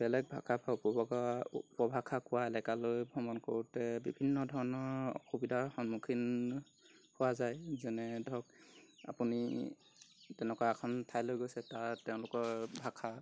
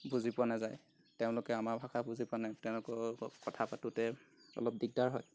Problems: constant background noise